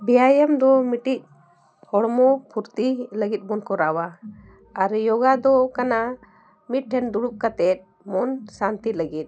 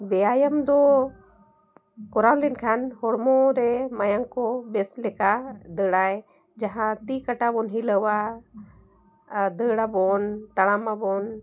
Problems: constant background noise